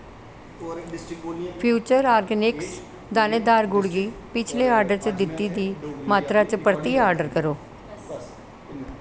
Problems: none marked